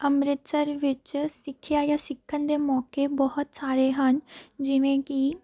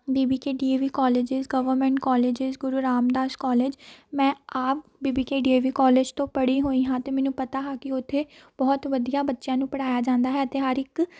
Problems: constant background noise, background conversations at intervals